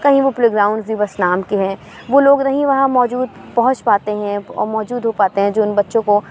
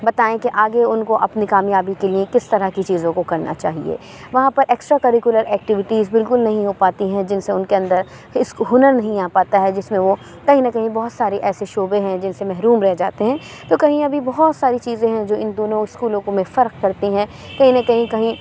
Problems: constant background noise